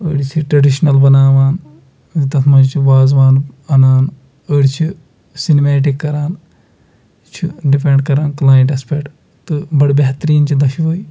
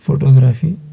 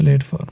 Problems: none marked